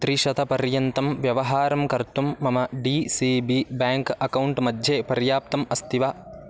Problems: constant background noise